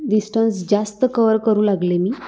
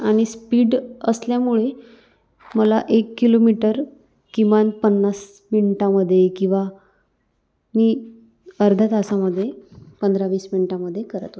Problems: constant background noise